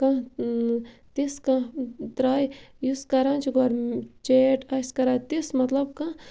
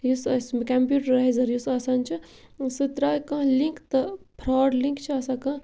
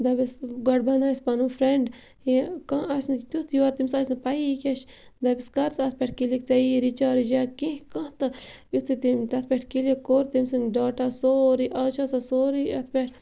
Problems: none marked